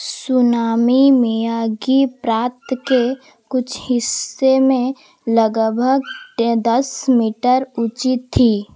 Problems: constant background noise